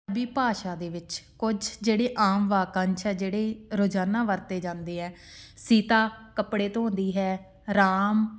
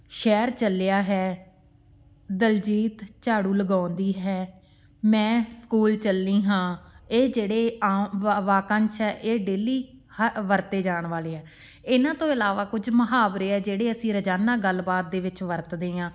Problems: background sounds at intervals